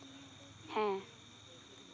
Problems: background sounds at intervals